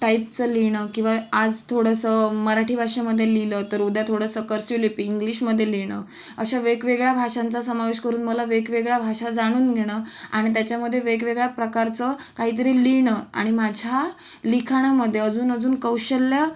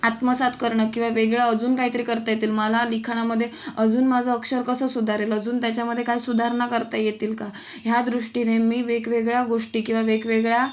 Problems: background sounds at intervals